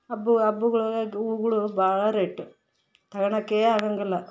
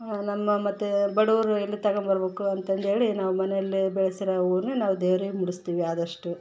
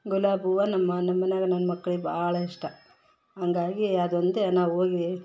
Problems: background sounds at intervals